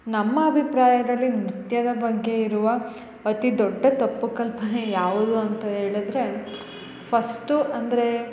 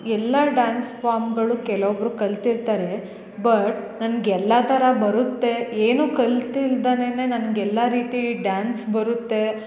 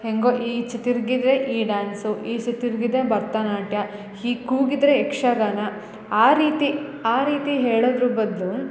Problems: none marked